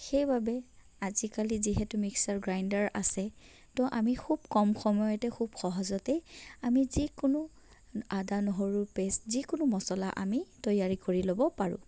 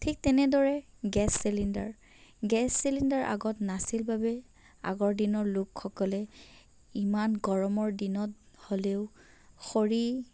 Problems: background conversations at intervals, low volume